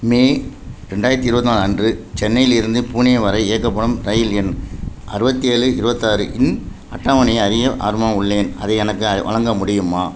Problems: constant background noise